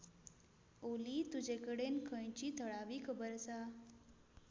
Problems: none marked